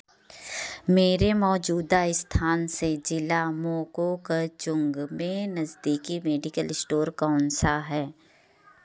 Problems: none marked